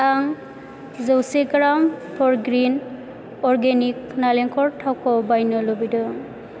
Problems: none marked